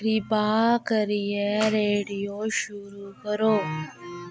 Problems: constant background noise